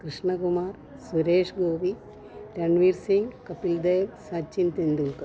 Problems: none marked